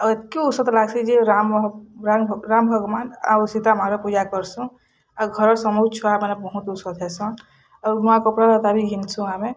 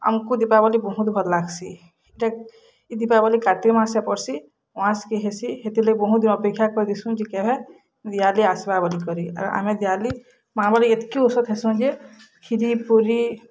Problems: background conversations at intervals